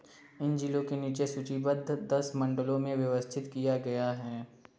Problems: low volume